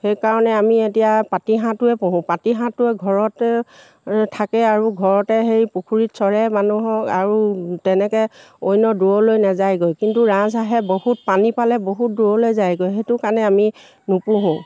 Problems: none marked